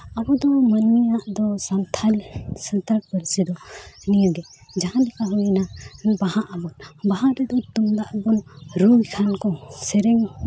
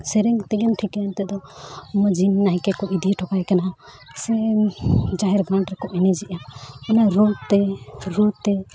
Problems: background sounds at intervals, background conversations at intervals